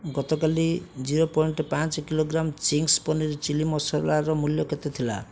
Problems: none marked